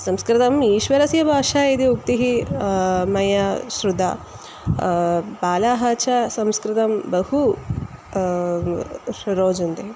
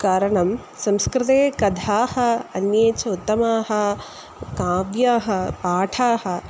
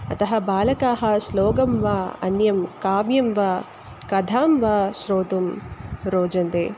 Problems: constant background noise